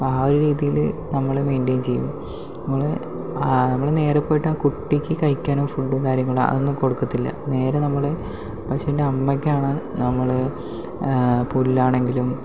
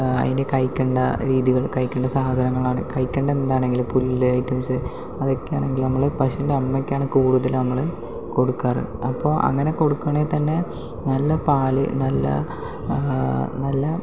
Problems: background sounds at intervals, low volume